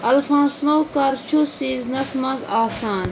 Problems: constant background noise